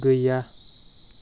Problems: constant background noise